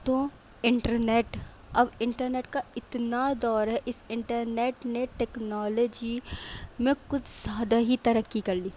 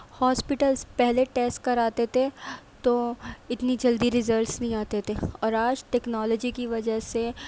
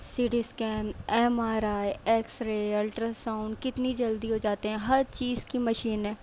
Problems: none marked